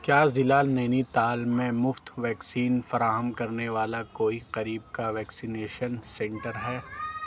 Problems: none marked